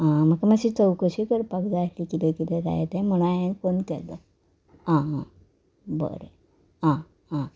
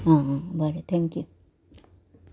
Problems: none marked